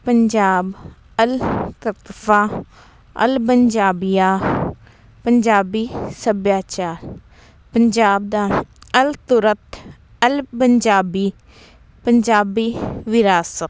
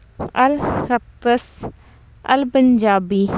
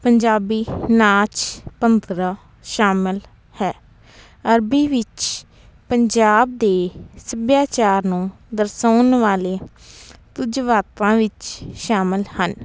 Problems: constant background noise